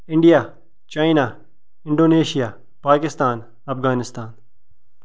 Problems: background sounds at intervals